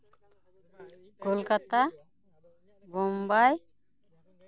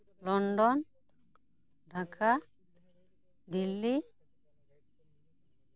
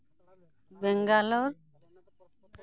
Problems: continuous background conversations